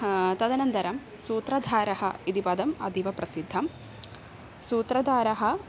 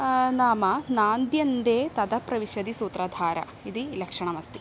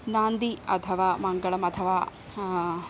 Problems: constant background noise